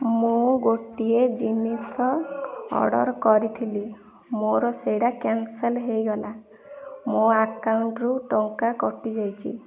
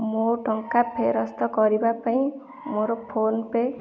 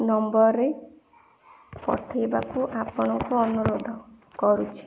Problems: background sounds at intervals